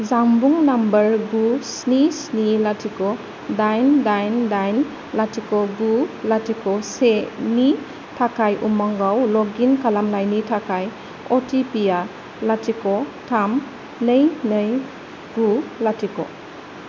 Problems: none marked